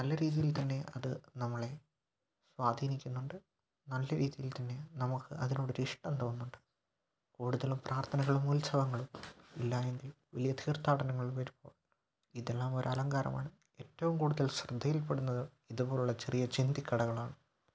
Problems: low volume